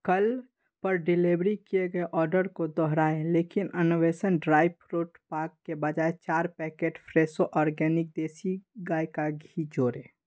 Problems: none marked